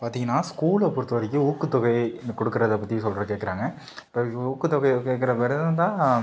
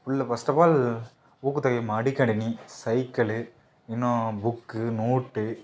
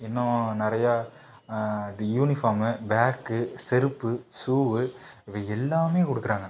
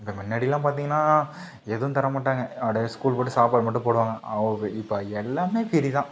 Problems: none marked